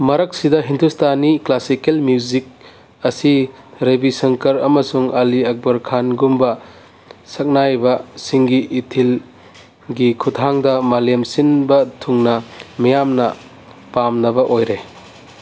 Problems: background sounds at intervals